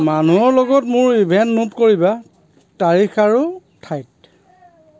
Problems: constant background noise, background conversations at intervals